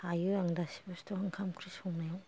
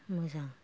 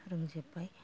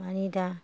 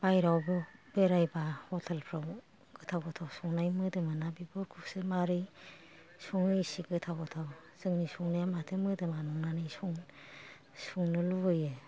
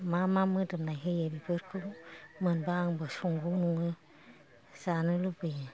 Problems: none marked